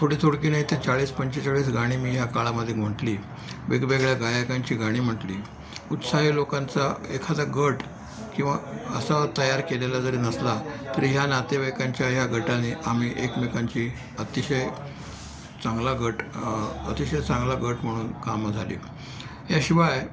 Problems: constant background noise, continuous background conversations